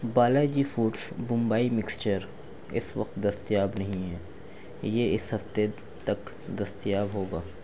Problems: none marked